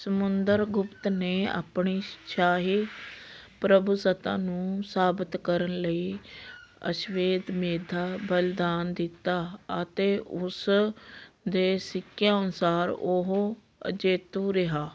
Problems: constant background noise